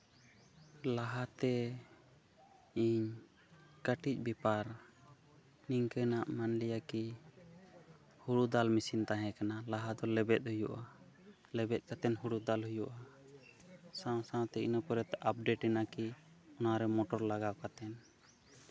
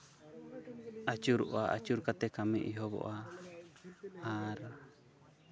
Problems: background conversations at intervals